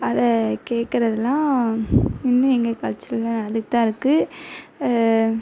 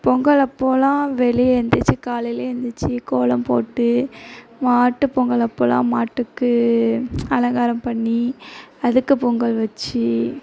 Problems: none marked